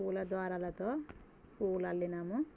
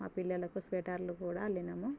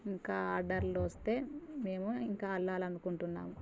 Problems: constant background noise